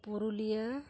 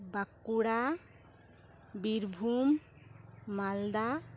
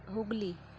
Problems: none marked